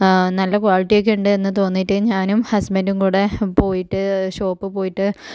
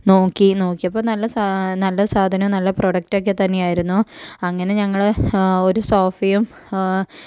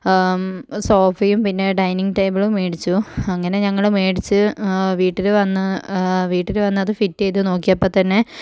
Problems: low volume